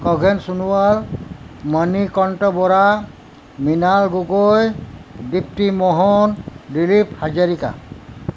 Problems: constant background noise